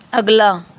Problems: none marked